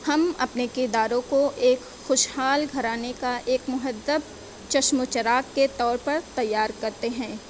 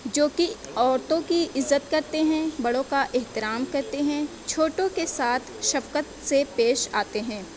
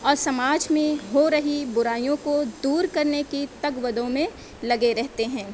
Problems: background sounds at intervals